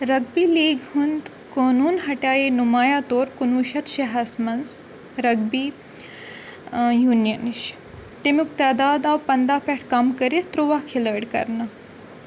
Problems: constant background noise